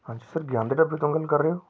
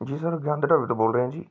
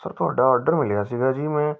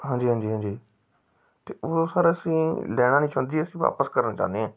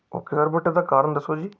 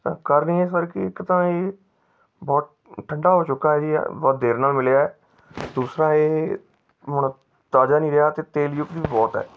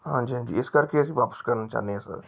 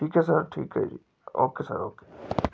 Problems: background sounds at intervals